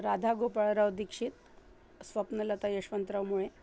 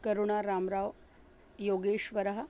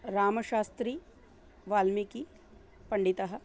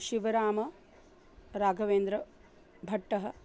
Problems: background sounds at intervals